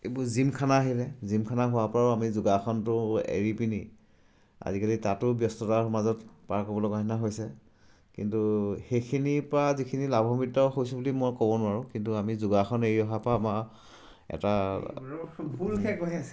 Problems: none marked